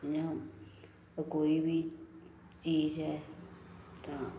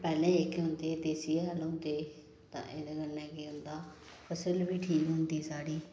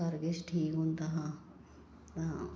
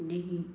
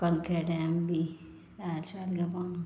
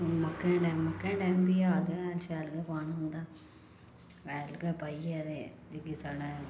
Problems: background sounds at intervals